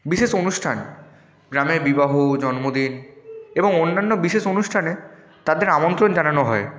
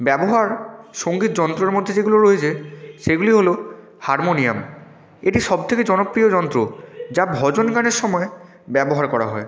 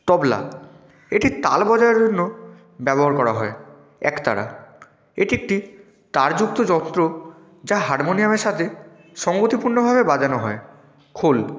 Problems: background sounds at intervals